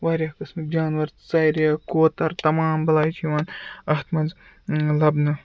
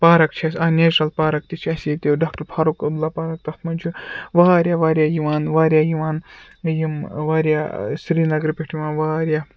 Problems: background sounds at intervals